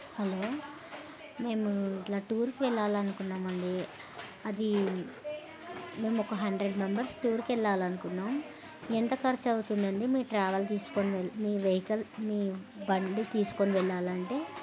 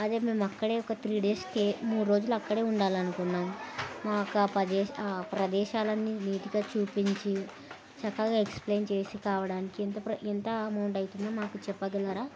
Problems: constant background noise